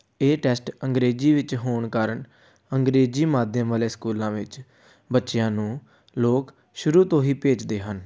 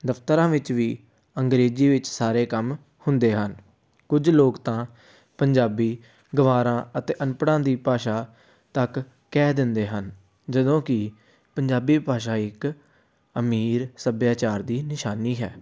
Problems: none marked